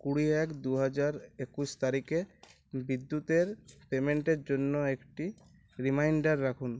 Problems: none marked